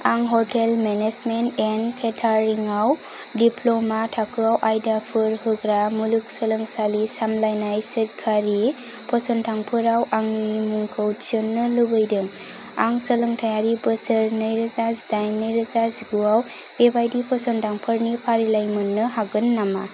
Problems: none marked